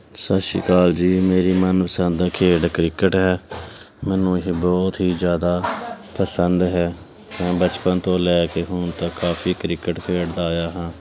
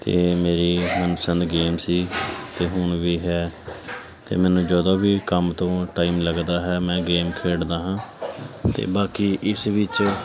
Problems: continuous background conversations